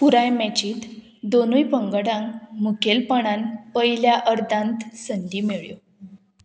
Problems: constant background noise